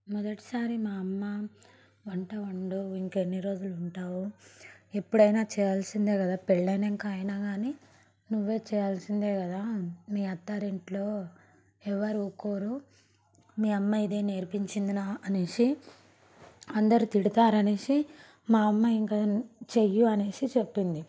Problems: background sounds at intervals